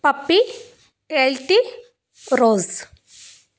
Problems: background sounds at intervals